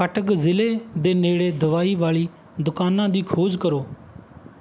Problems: background sounds at intervals